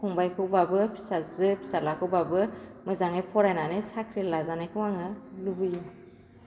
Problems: constant background noise